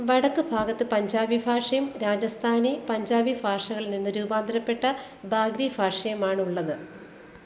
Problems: constant background noise